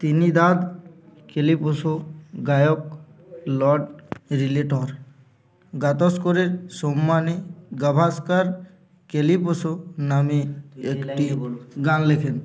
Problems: constant background noise, continuous background conversations